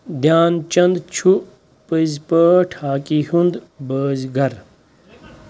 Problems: background sounds at intervals